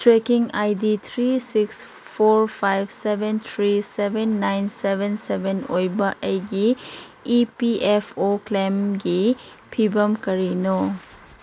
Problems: constant background noise